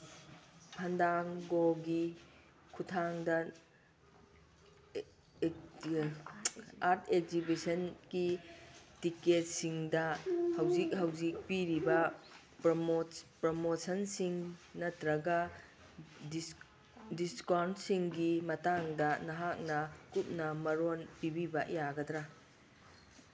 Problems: background sounds at intervals